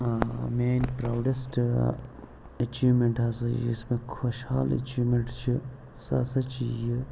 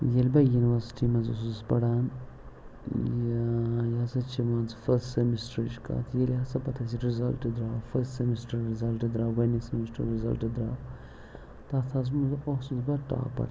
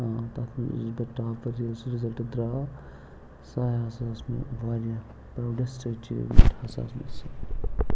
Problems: background sounds at intervals, low volume